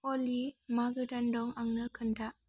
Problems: constant background noise